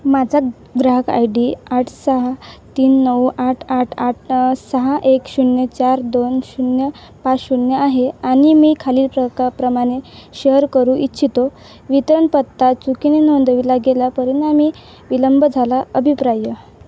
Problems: constant background noise